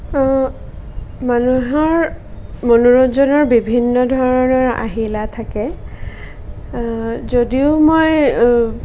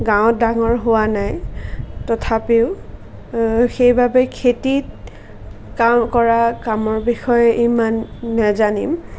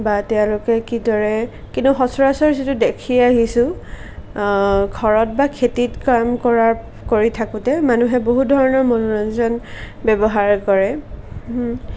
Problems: none marked